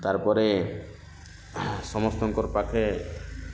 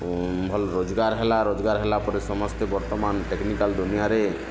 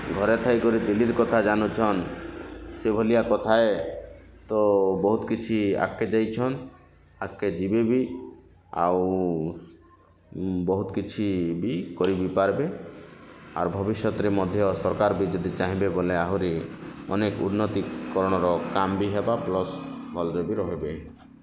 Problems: constant background noise